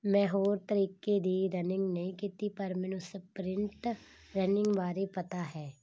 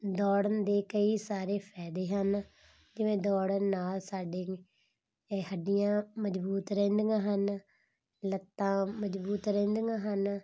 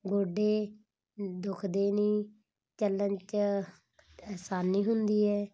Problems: none marked